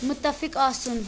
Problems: constant background noise